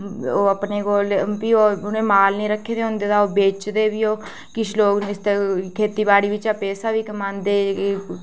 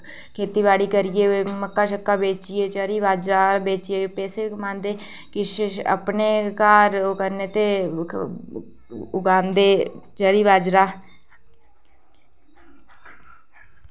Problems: none marked